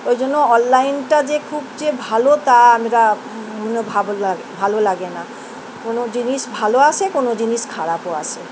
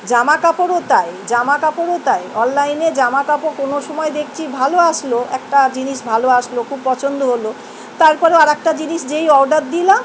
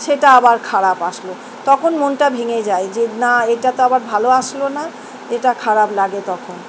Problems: constant background noise